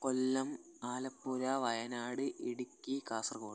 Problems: constant background noise, low volume